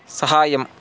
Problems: constant background noise